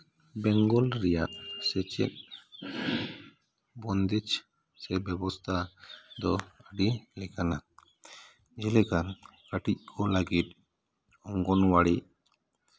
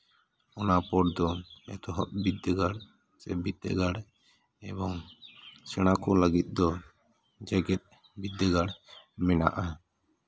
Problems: none marked